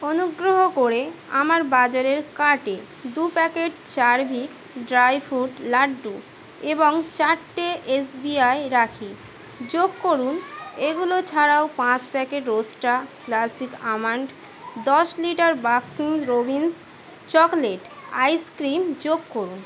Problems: none marked